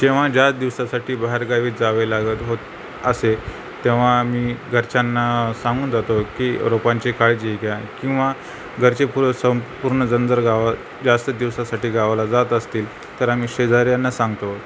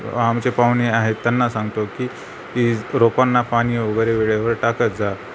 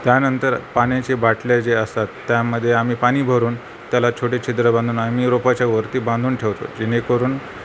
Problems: constant background noise